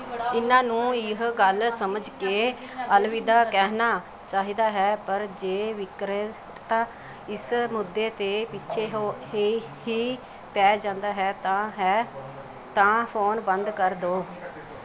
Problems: continuous background conversations